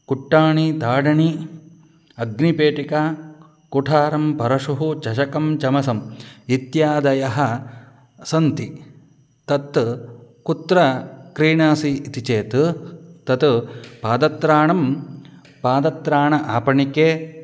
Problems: none marked